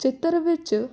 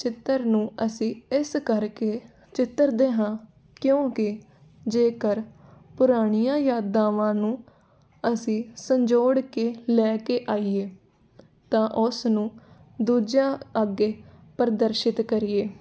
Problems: constant background noise